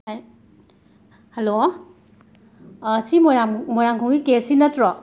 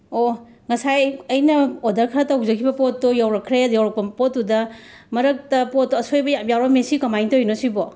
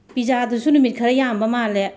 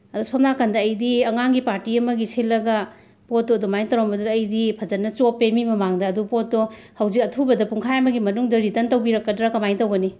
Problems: background sounds at intervals